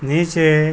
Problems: constant background noise